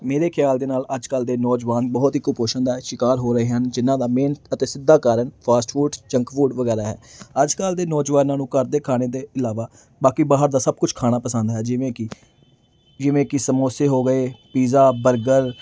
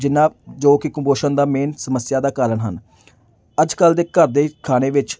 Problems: background sounds at intervals